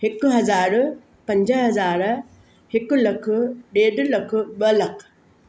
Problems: constant background noise